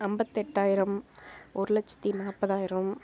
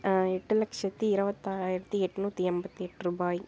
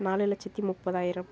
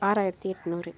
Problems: constant background noise